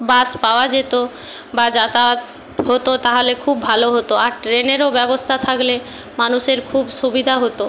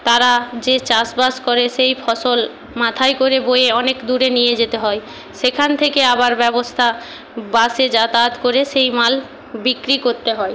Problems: constant background noise